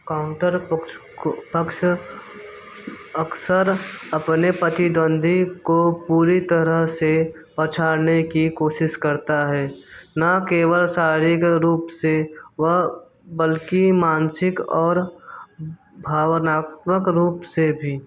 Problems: background sounds at intervals